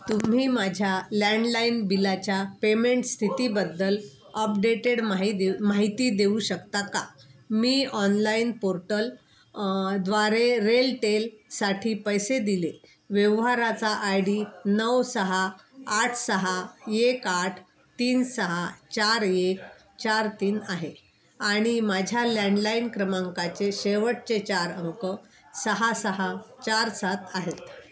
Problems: constant background noise, continuous background conversations